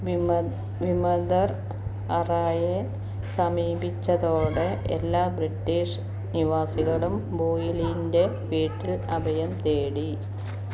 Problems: constant background noise, low volume